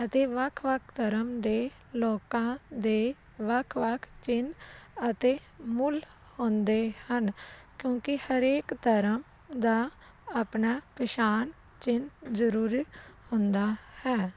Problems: none marked